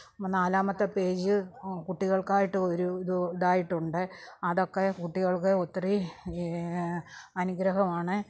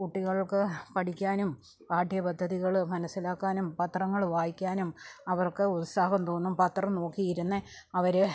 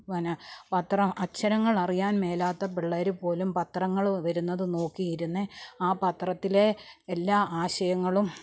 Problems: none marked